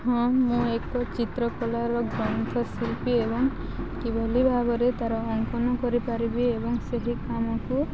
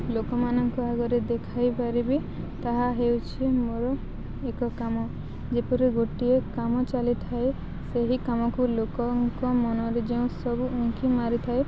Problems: constant background noise, continuous background conversations